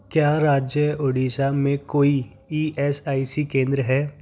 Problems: background conversations at intervals